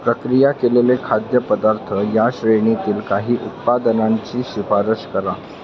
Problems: constant background noise, continuous background conversations